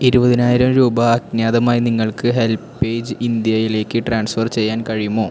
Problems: constant background noise